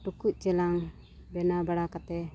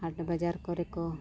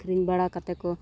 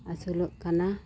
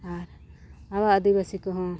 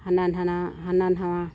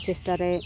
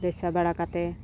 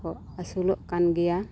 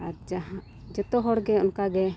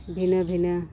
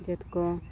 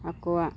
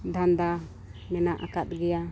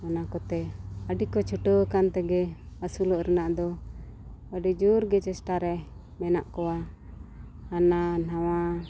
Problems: background sounds at intervals, low volume